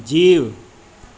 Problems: constant background noise, echo